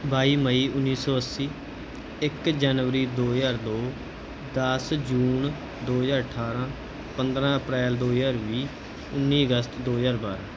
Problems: background sounds at intervals